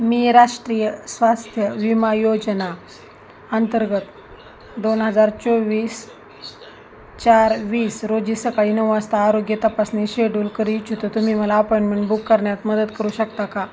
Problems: constant background noise, continuous background conversations